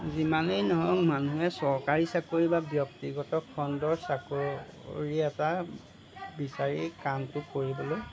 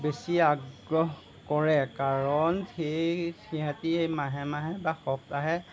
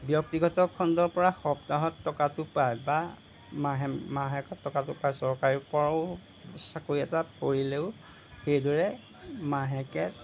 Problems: constant background noise